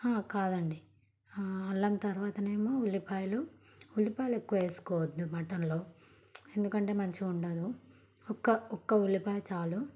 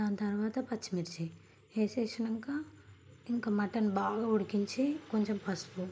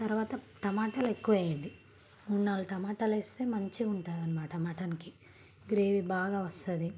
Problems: background sounds at intervals